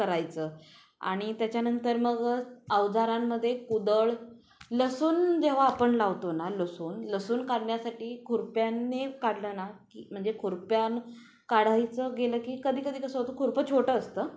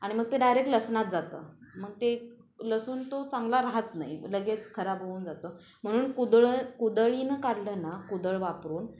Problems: constant background noise, background conversations at intervals